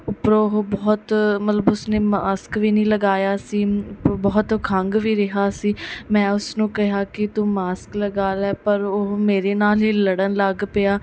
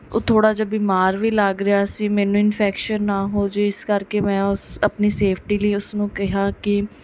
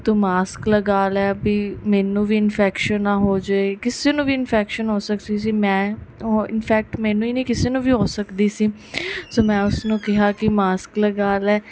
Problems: background sounds at intervals